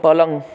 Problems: background conversations at intervals